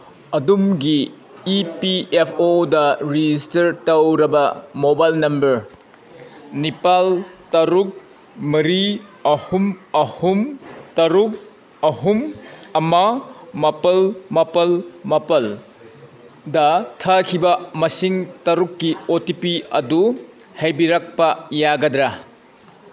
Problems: constant background noise